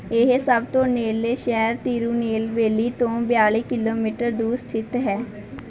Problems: background sounds at intervals